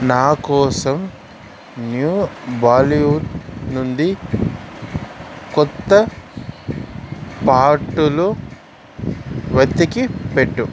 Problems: constant background noise